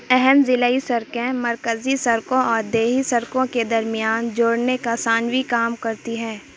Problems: constant background noise